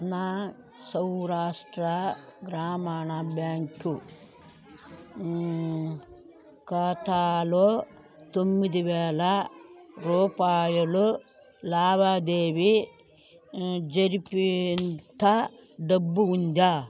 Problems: continuous background conversations